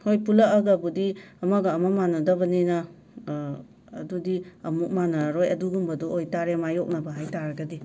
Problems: constant background noise